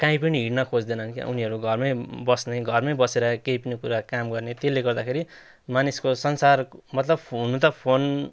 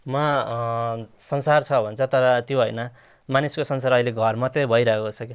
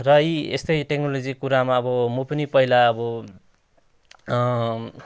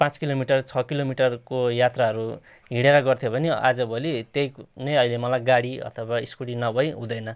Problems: none marked